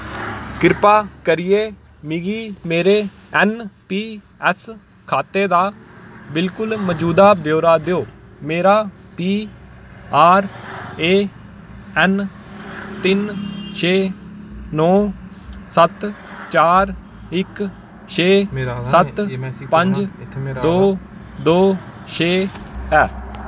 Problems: none marked